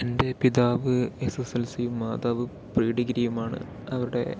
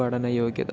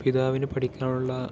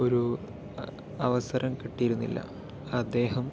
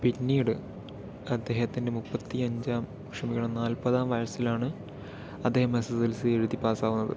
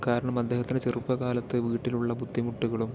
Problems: none marked